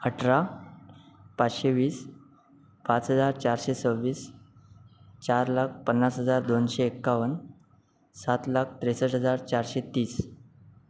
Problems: none marked